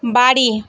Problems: none marked